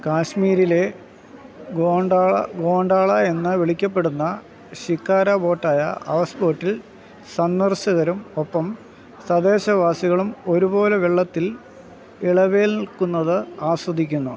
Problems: constant background noise